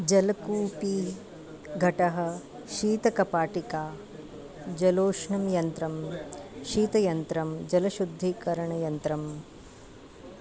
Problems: background conversations at intervals